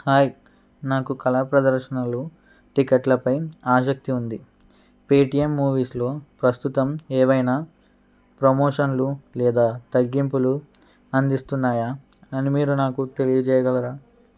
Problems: constant background noise